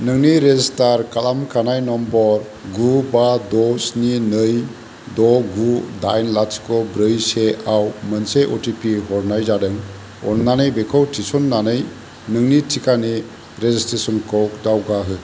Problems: constant background noise